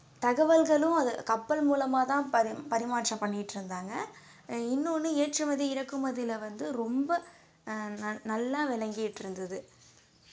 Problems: none marked